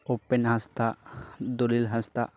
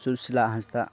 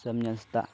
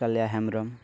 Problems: constant background noise